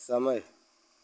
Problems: constant background noise